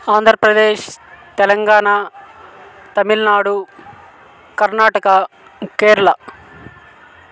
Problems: constant background noise